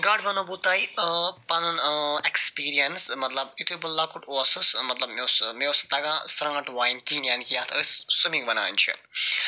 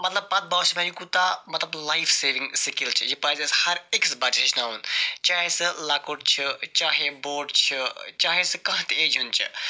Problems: none marked